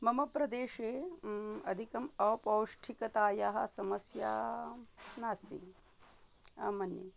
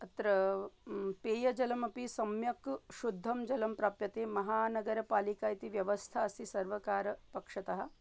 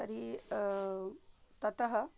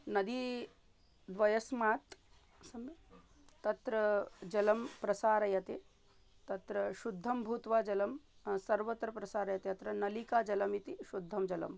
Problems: none marked